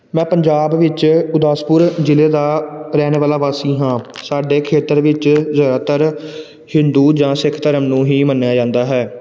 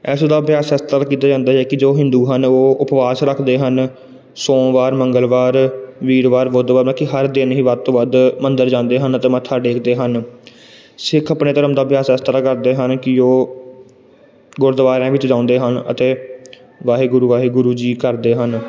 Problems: none marked